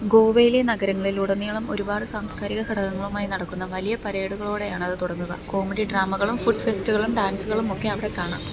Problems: constant background noise